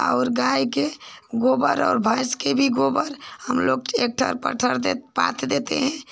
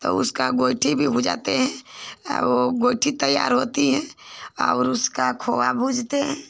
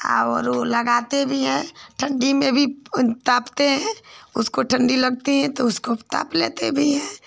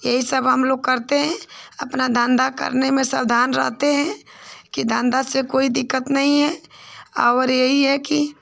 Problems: none marked